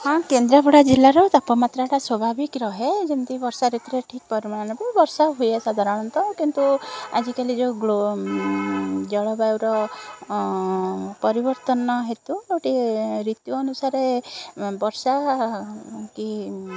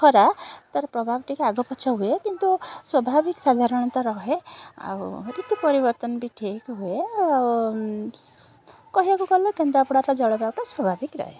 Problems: constant background noise